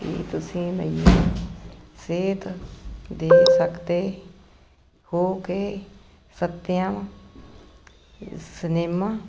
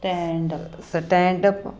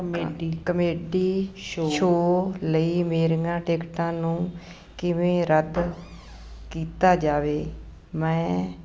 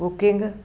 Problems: background conversations at intervals